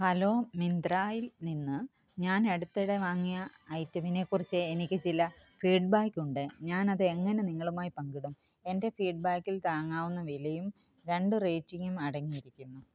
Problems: background sounds at intervals